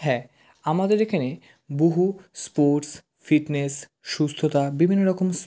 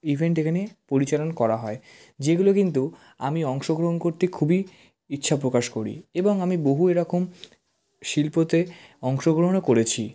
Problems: none marked